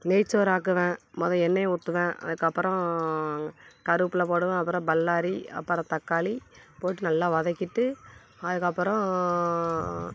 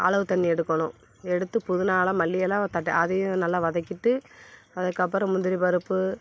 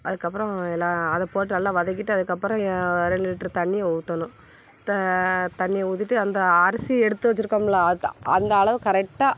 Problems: background sounds at intervals